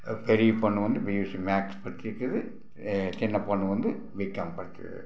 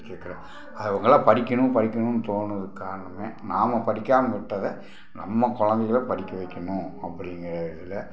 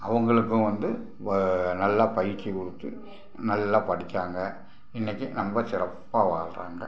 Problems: background sounds at intervals